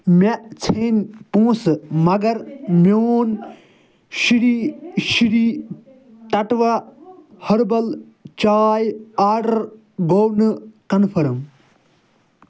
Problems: none marked